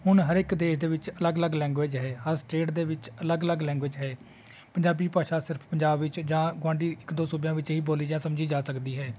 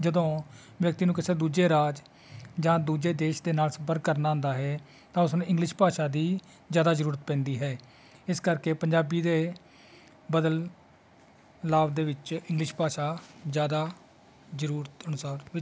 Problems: constant background noise